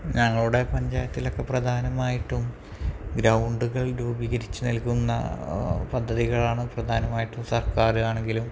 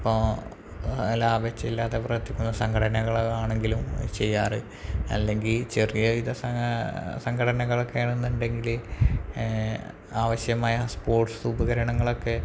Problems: background sounds at intervals, low volume